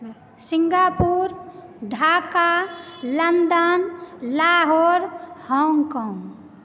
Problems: none marked